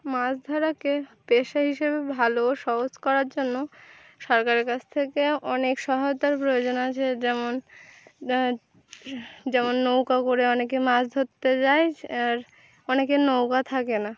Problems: background sounds at intervals